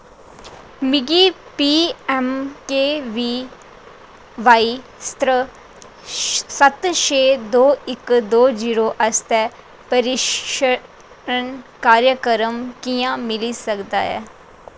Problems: constant background noise